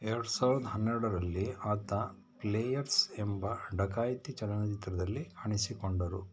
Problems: none marked